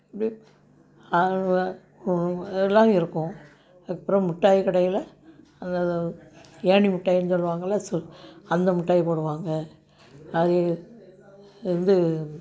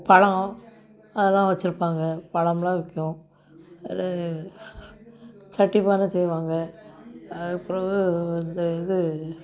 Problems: background sounds at intervals